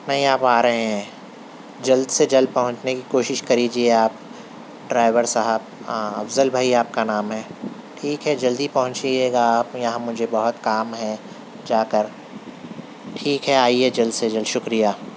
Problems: constant background noise